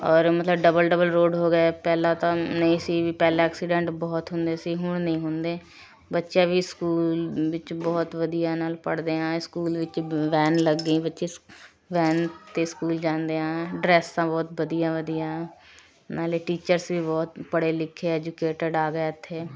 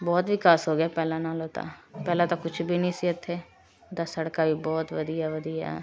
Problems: background sounds at intervals, continuous background conversations